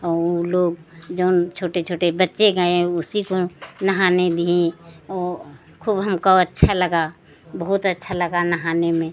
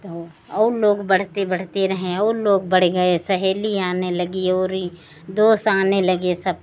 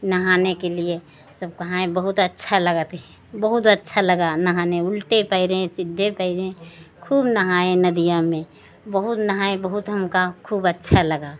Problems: constant background noise